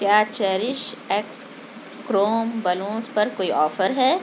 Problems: constant background noise